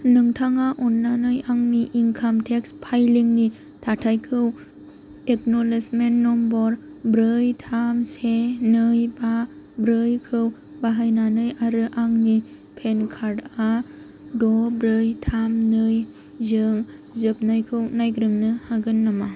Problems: constant background noise